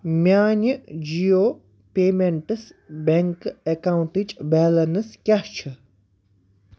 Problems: background sounds at intervals